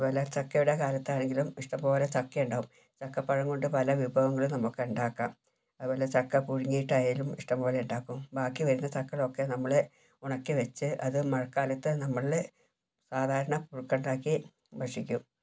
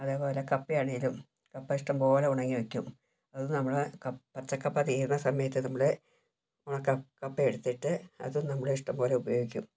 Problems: low volume